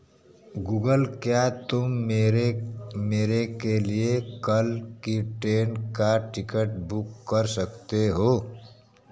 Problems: constant background noise, background conversations at intervals